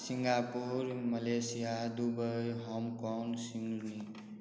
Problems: background sounds at intervals